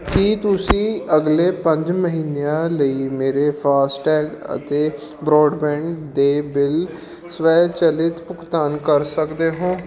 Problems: background conversations at intervals